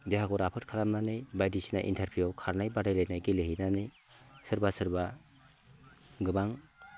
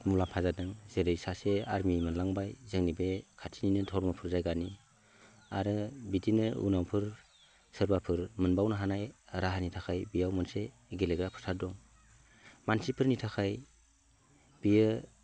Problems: none marked